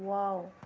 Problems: low volume